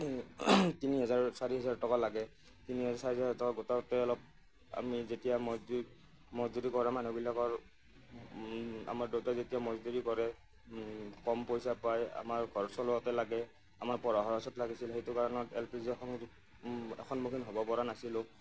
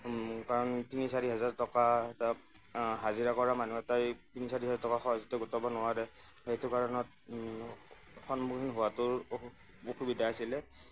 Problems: none marked